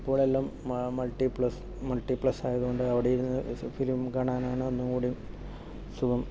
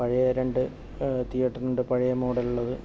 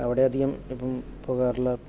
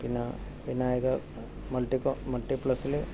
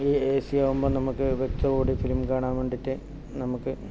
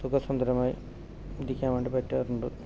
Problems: background sounds at intervals, low volume